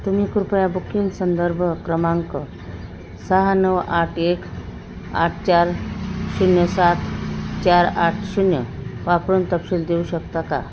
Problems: constant background noise